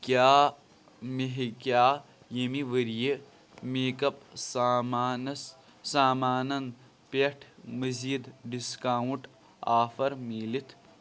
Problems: background sounds at intervals